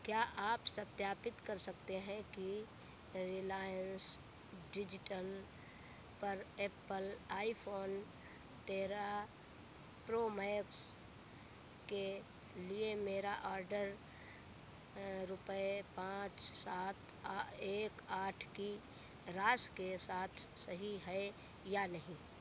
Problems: none marked